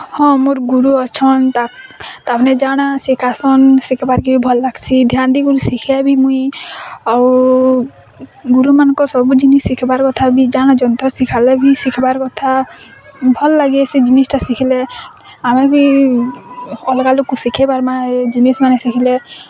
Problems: constant background noise, continuous background conversations